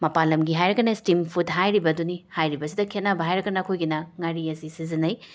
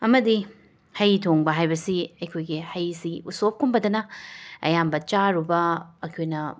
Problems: background sounds at intervals, background conversations at intervals